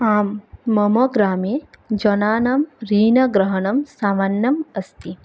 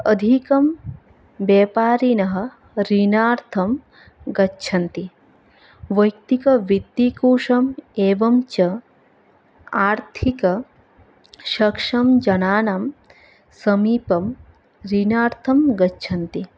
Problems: background sounds at intervals